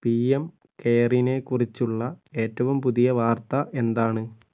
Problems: none marked